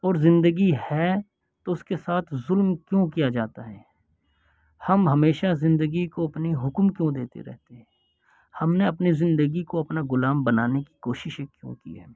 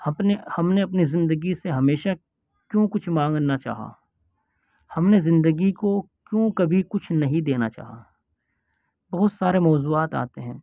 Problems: none marked